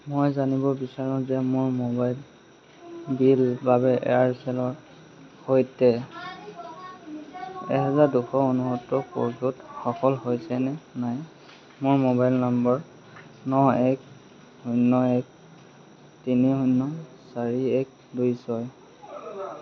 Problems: constant background noise, background conversations at intervals